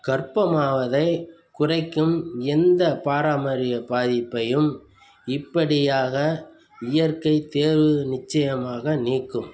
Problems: none marked